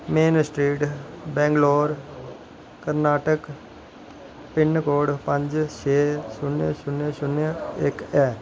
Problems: none marked